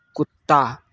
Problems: background sounds at intervals